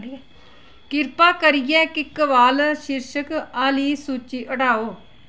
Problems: constant background noise